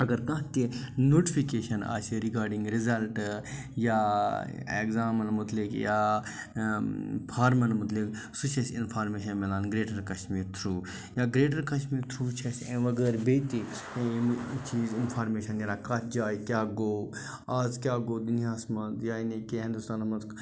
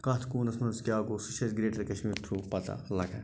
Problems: none marked